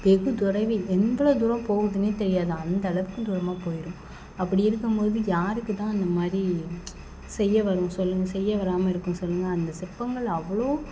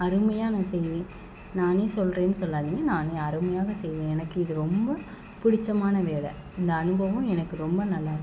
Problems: background sounds at intervals